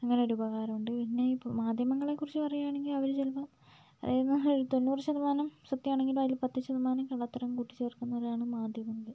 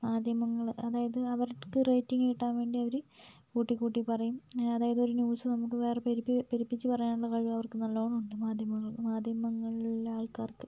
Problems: low volume